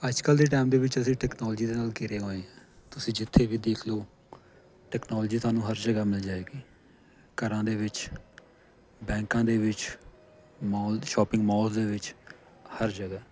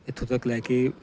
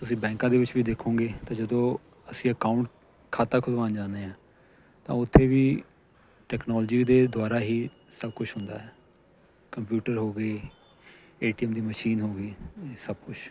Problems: constant background noise